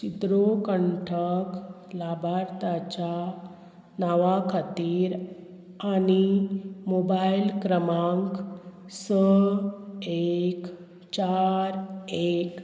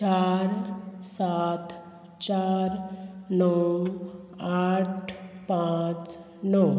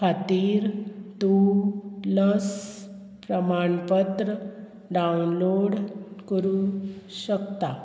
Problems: constant background noise